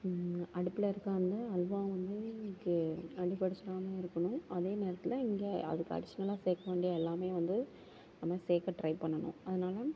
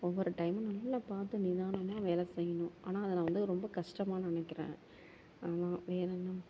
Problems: constant background noise